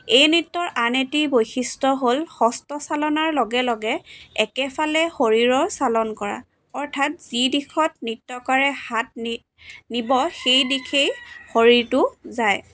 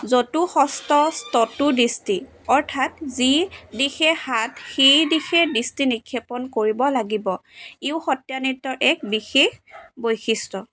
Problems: constant background noise